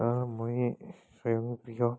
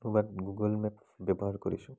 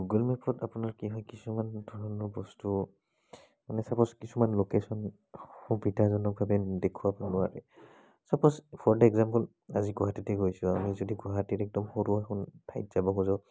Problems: background conversations at intervals